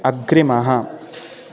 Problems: constant background noise